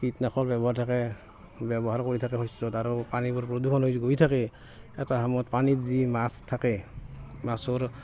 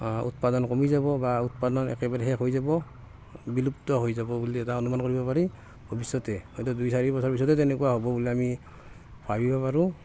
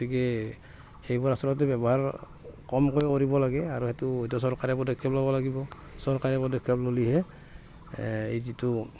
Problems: constant background noise